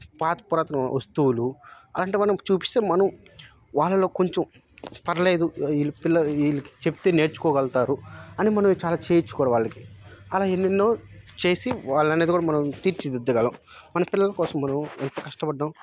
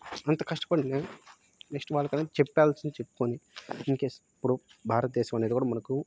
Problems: background sounds at intervals